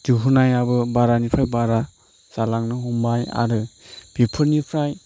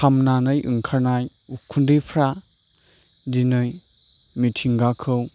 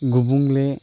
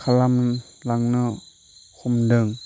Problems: background sounds at intervals